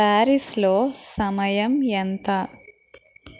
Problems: constant background noise